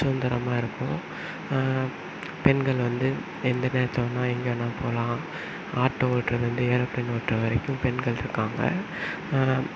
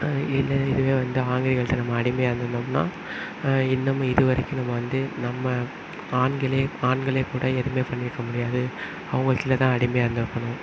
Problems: background sounds at intervals